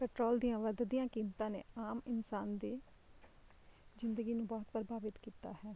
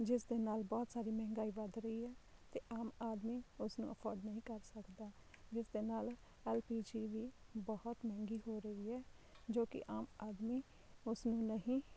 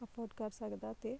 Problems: low volume